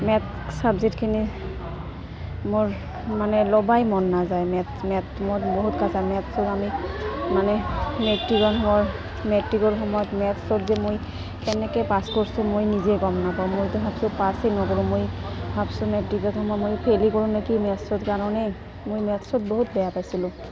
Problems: constant background noise, continuous background conversations